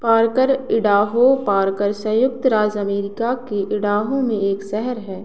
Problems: background sounds at intervals